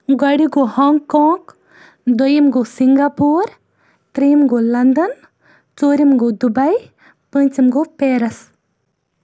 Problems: constant background noise